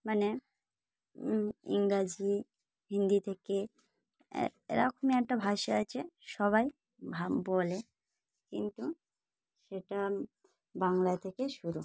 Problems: none marked